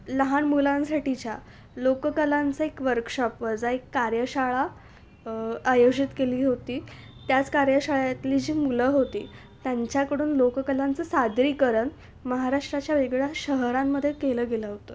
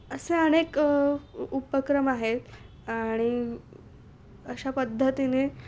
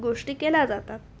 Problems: constant background noise